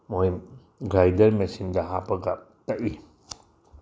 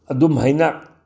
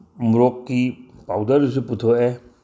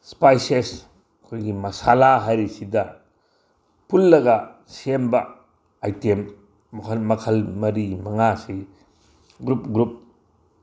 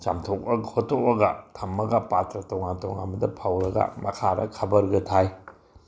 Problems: none marked